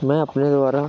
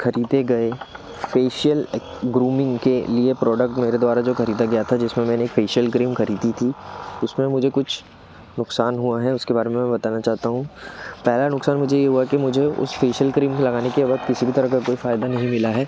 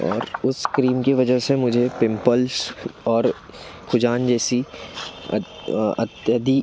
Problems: background sounds at intervals